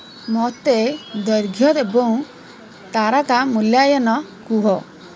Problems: constant background noise